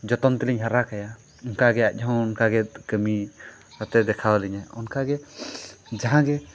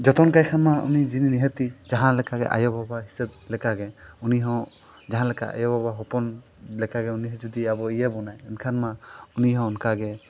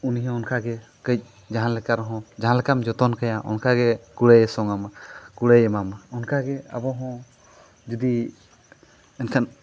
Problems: background sounds at intervals